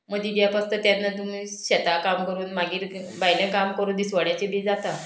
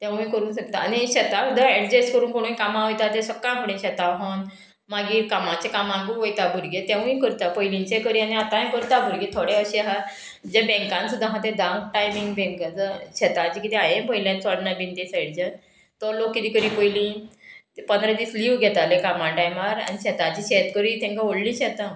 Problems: none marked